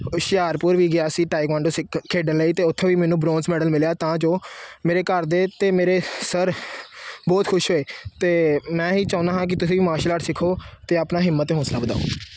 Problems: none marked